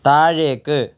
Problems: none marked